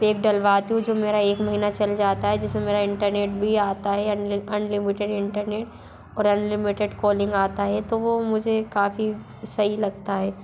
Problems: none marked